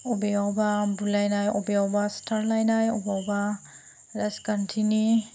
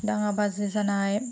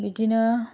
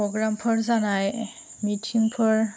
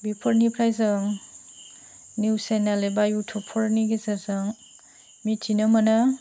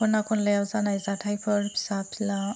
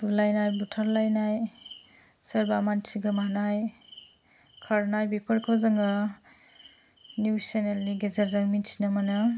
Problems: low volume